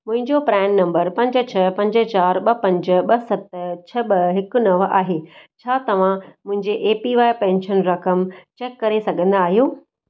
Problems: none marked